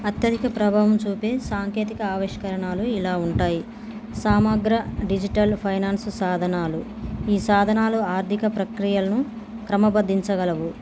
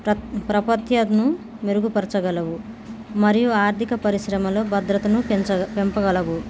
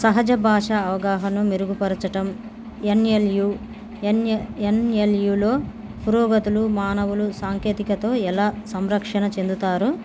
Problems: background sounds at intervals